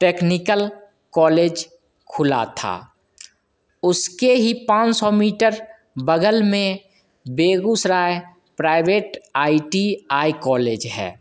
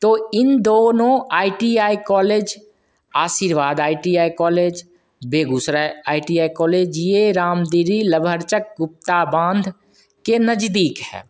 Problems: constant background noise, echo